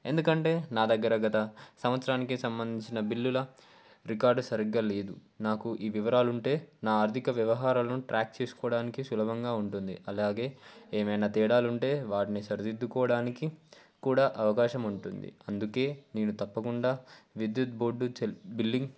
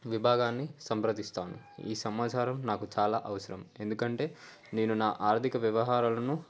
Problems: none marked